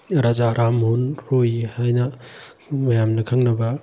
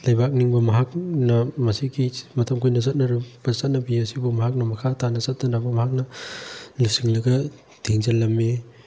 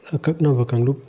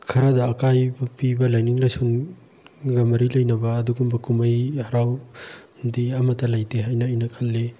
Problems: background sounds at intervals